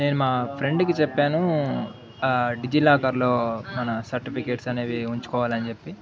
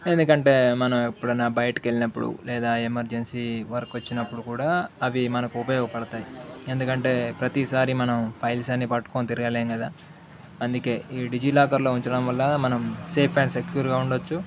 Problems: continuous background conversations